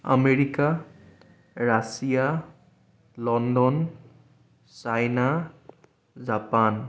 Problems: none marked